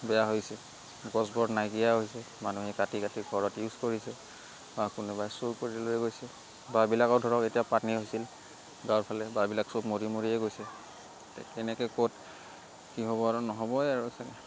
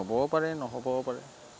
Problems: constant background noise